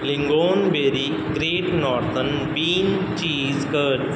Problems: background sounds at intervals